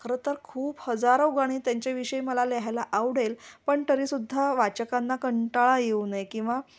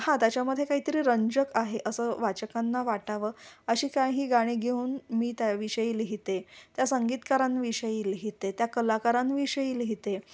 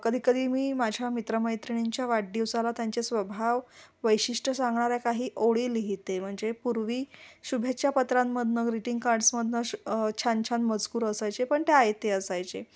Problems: background sounds at intervals